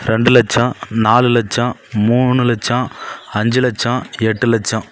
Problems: none marked